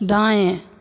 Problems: constant background noise, echo